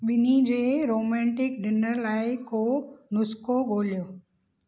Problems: none marked